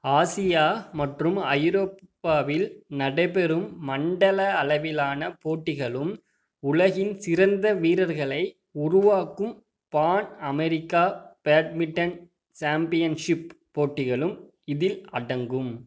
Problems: none marked